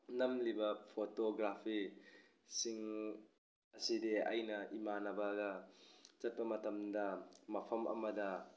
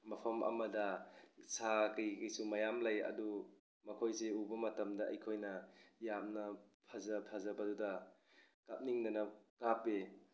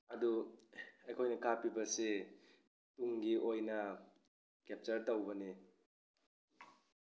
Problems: none marked